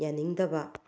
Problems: low volume